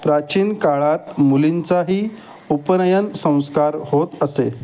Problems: none marked